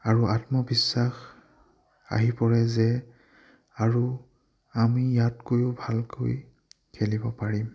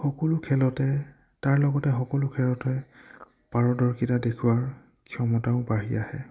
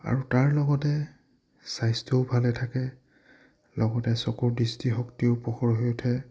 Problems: low volume